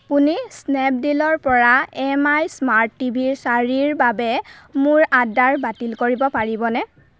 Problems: constant background noise